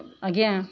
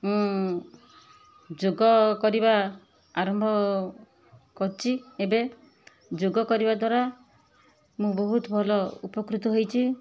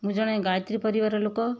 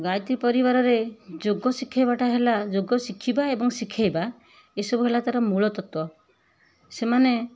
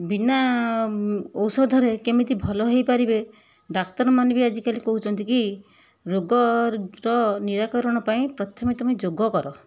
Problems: none marked